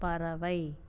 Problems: none marked